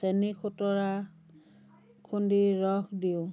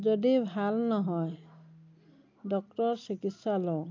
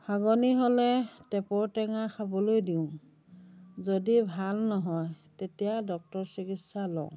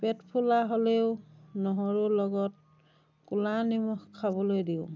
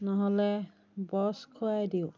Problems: background conversations at intervals